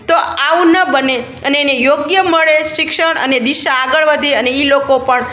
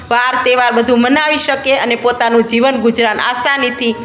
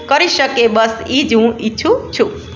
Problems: none marked